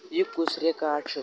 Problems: continuous background conversations